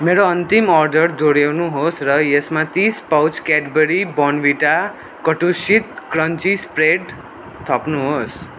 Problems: none marked